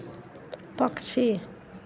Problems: background sounds at intervals